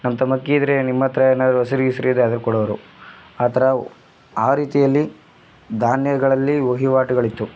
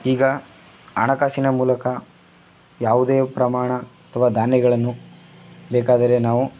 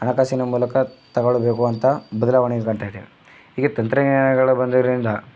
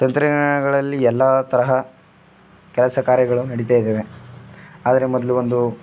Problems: none marked